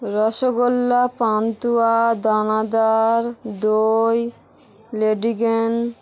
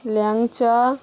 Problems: constant background noise, background conversations at intervals